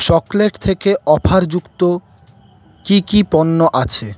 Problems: none marked